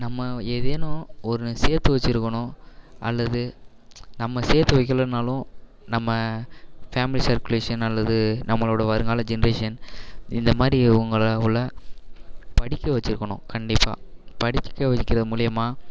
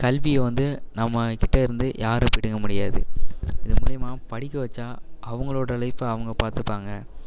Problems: constant background noise